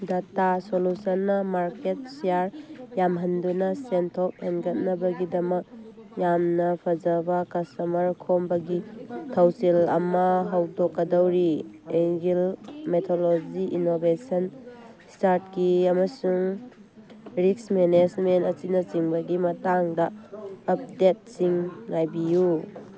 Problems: background conversations at intervals